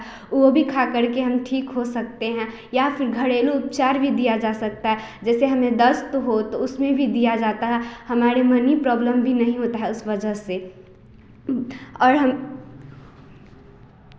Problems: constant background noise